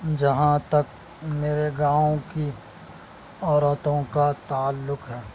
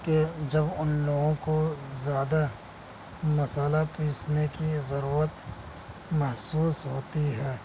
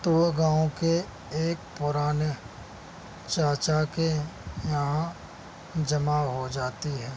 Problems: constant background noise